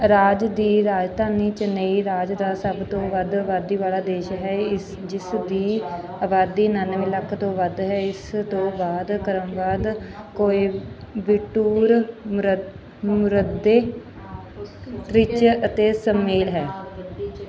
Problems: background conversations at intervals